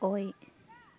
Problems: none marked